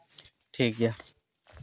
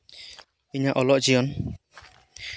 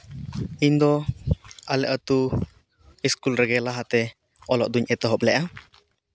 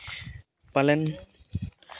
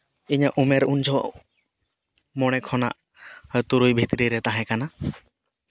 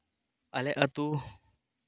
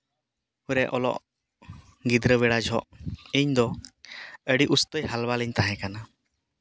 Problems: none marked